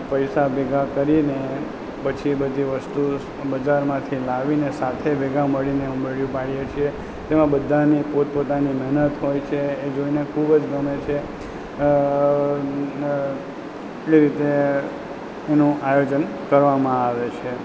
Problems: none marked